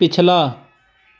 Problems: background sounds at intervals